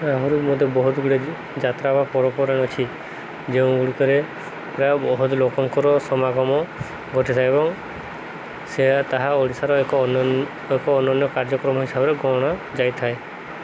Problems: constant background noise